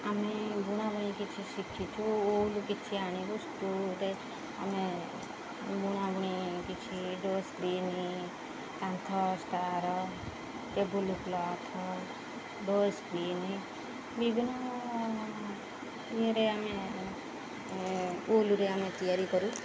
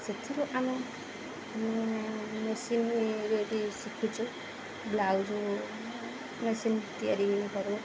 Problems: constant background noise